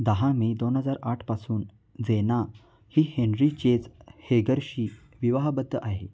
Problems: none marked